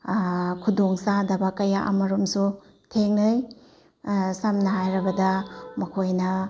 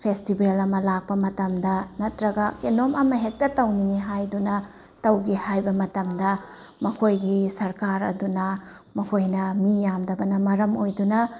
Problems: none marked